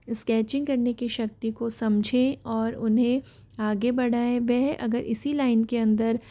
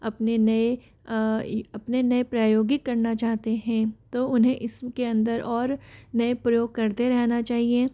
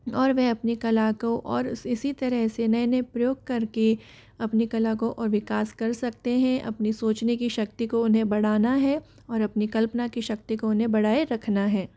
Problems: none marked